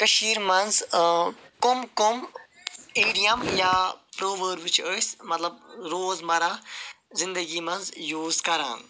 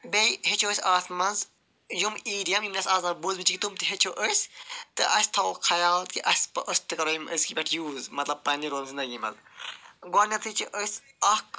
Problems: none marked